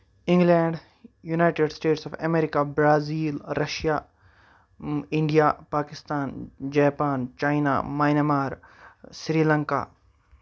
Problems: none marked